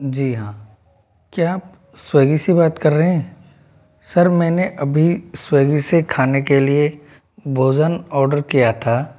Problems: background sounds at intervals